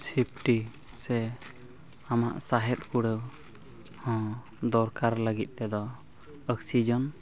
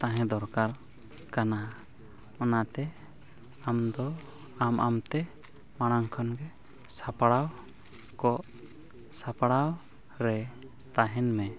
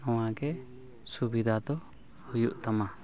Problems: constant background noise, background conversations at intervals